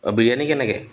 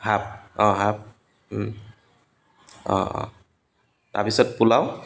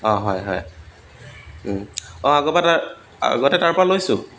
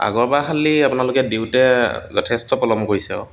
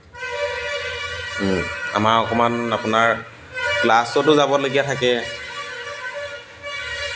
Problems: constant background noise, background conversations at intervals